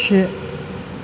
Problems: constant background noise